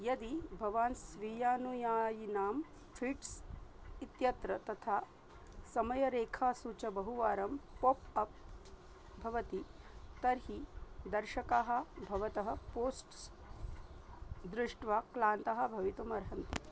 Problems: low volume